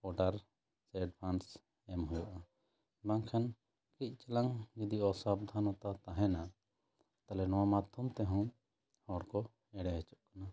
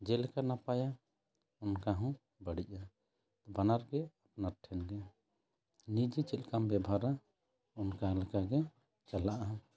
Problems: background conversations at intervals